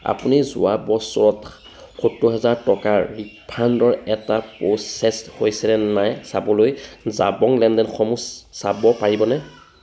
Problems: background sounds at intervals